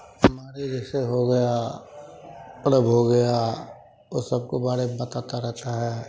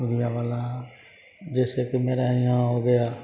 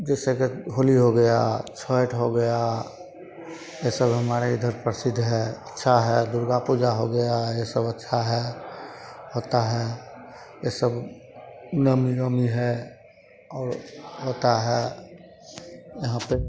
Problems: constant background noise, continuous background conversations